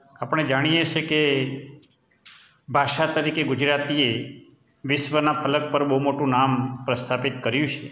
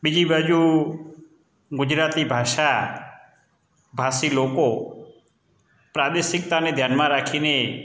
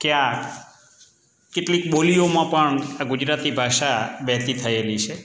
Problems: constant background noise